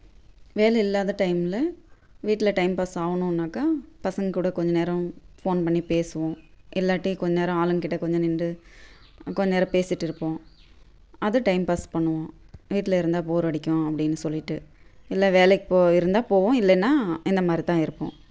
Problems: constant background noise